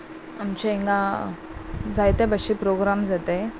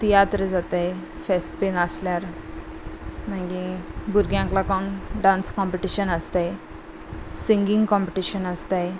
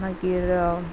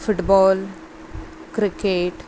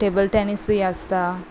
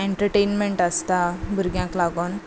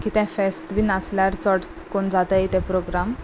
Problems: none marked